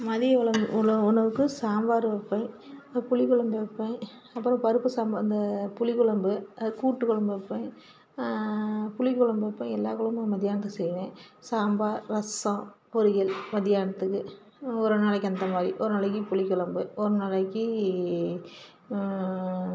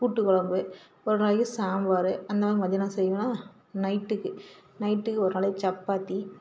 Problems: constant background noise